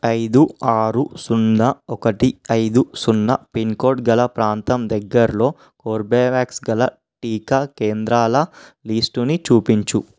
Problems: none marked